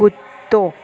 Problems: constant background noise, echo